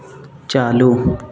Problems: constant background noise